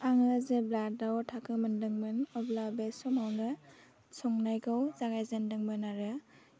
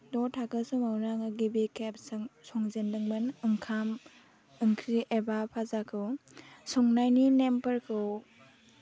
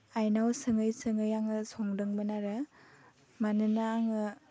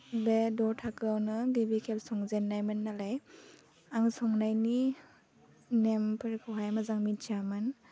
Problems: low volume